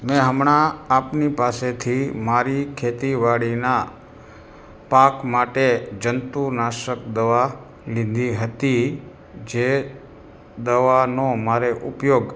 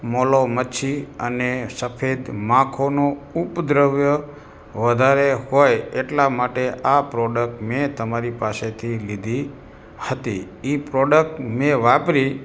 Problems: background sounds at intervals